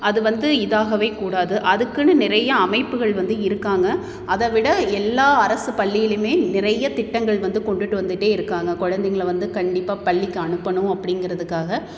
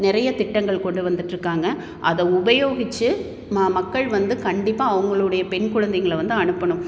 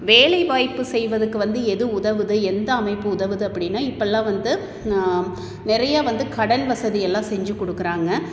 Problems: echo